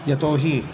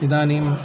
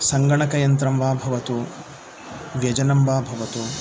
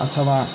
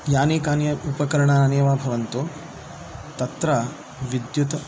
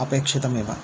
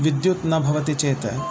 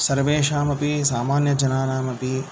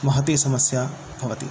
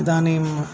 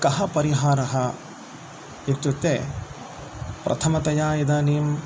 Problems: constant background noise